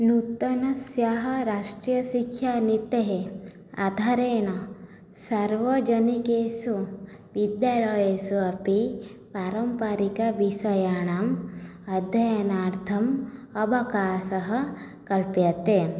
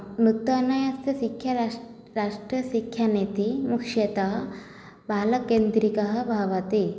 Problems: low volume